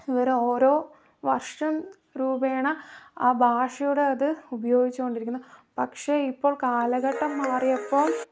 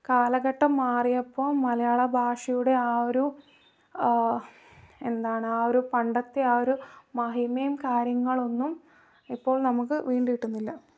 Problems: low volume